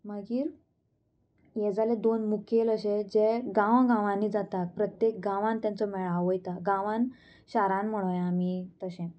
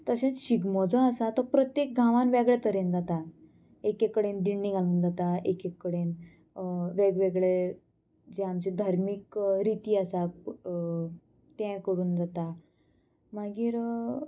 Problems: constant background noise